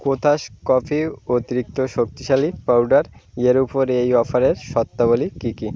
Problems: constant background noise, background conversations at intervals